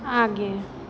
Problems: none marked